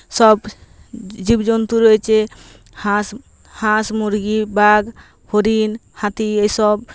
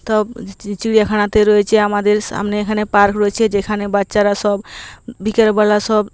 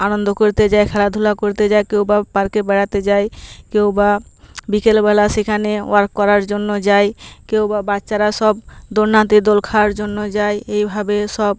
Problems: constant background noise